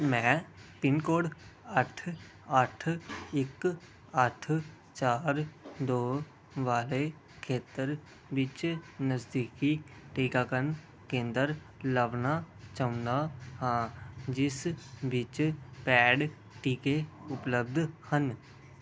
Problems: background sounds at intervals